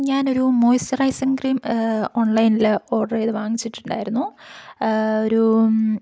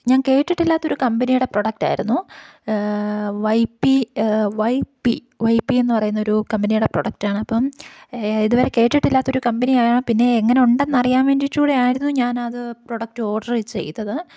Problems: none marked